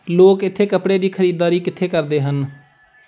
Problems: none marked